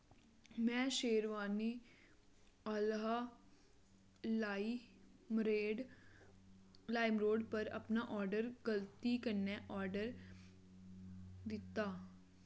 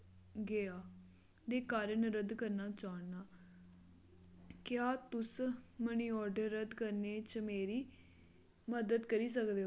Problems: low volume